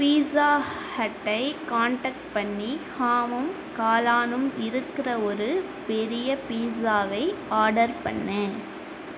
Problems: constant background noise